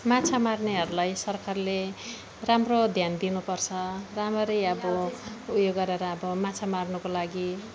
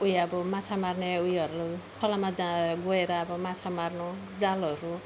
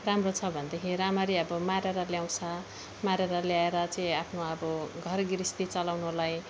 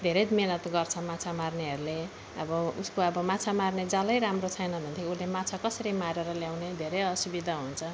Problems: background sounds at intervals